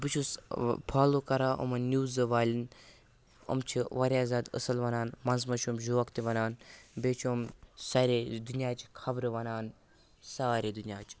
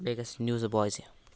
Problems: constant background noise, continuous background conversations